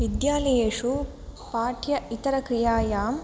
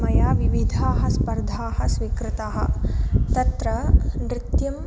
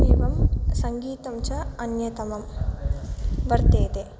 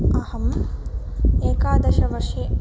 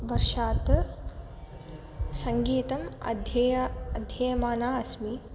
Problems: background sounds at intervals